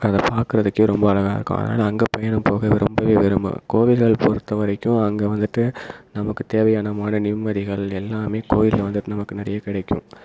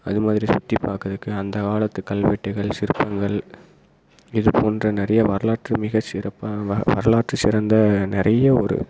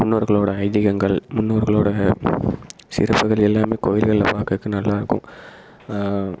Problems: constant background noise